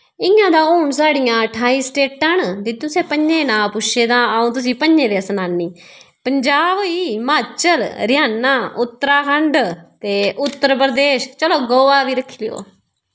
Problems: none marked